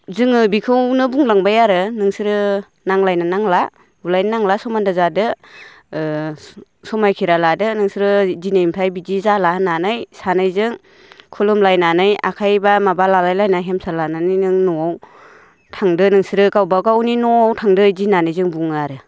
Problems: none marked